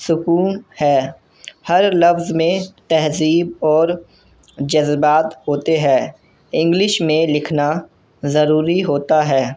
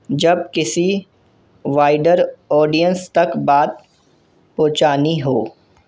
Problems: constant background noise